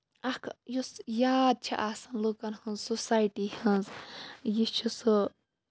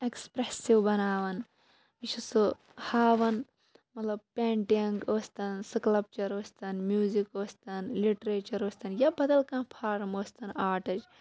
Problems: low volume